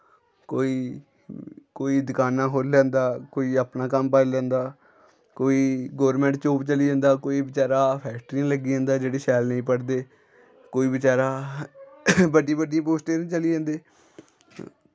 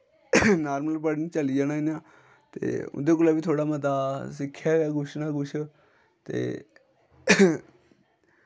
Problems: none marked